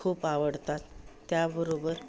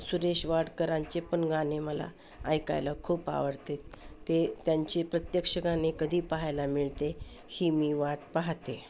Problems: constant background noise, background conversations at intervals